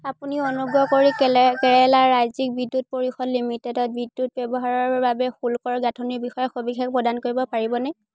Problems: none marked